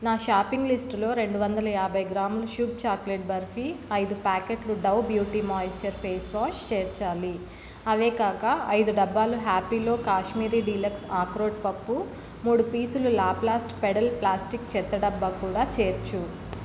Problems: constant background noise